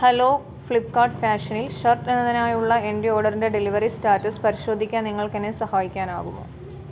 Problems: background sounds at intervals